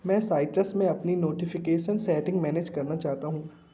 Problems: constant background noise